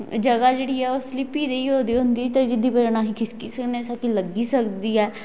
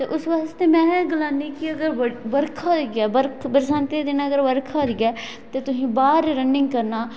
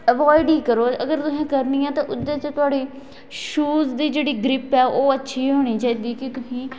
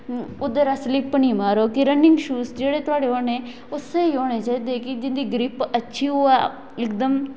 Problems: echo